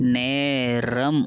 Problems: none marked